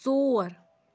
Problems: none marked